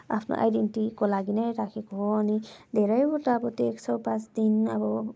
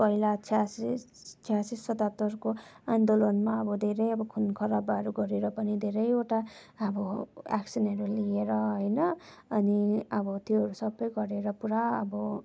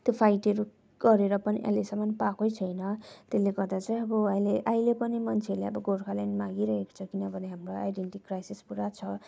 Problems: none marked